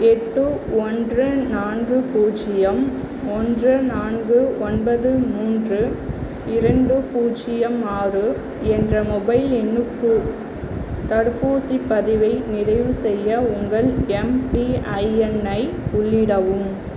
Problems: none marked